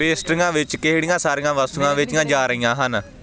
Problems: constant background noise